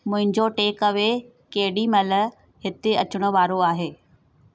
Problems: none marked